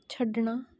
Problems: none marked